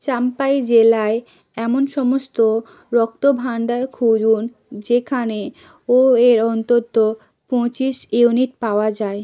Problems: none marked